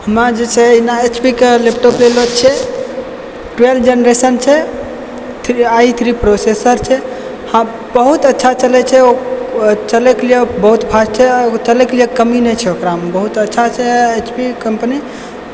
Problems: constant background noise